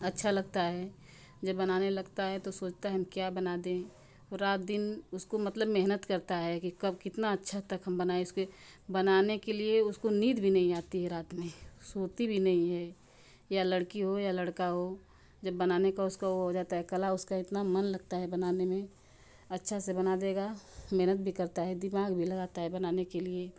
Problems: none marked